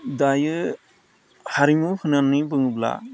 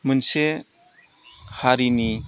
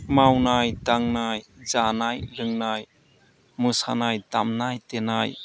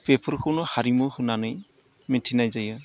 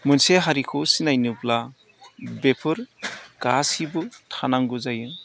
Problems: low volume